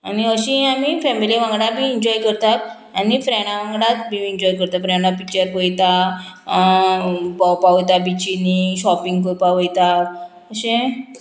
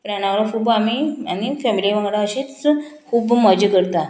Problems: none marked